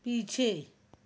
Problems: none marked